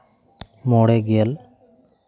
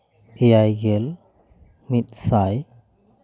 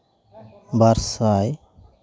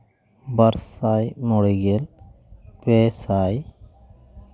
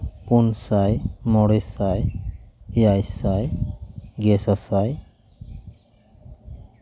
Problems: none marked